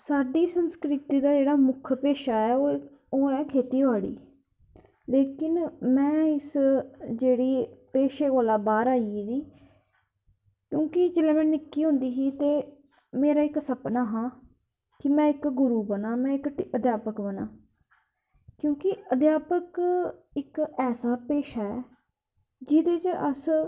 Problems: none marked